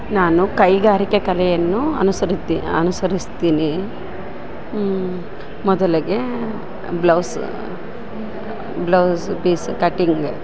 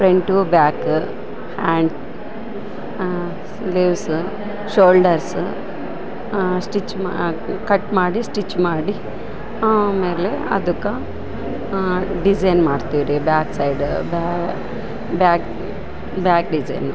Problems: constant background noise